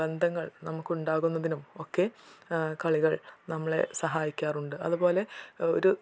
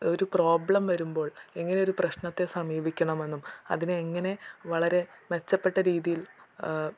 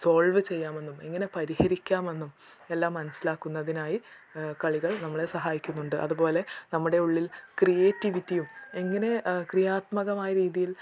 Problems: none marked